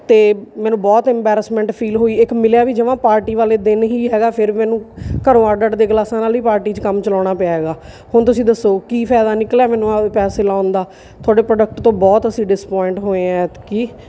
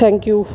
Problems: background sounds at intervals